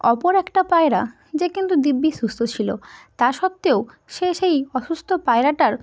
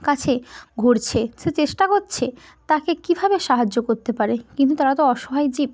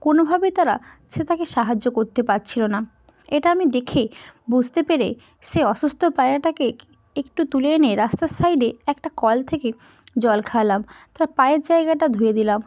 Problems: background sounds at intervals